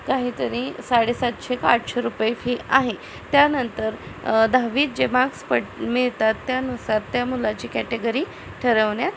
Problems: constant background noise